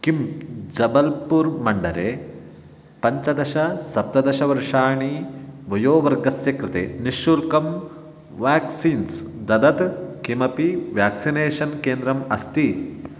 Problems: none marked